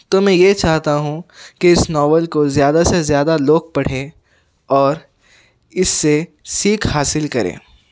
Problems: background sounds at intervals